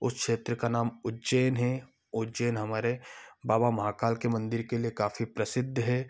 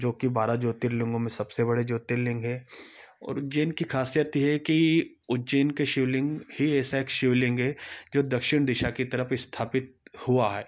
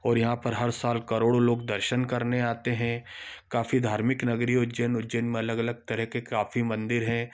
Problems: background sounds at intervals